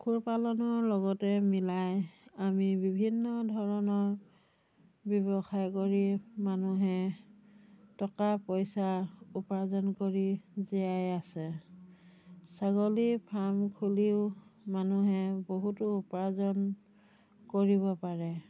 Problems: none marked